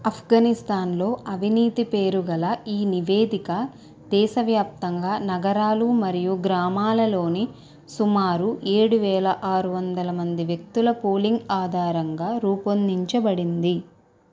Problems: none marked